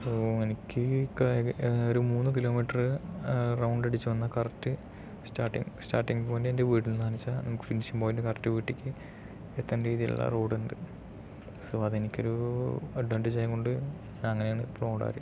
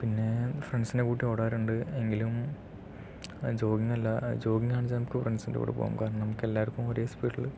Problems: low volume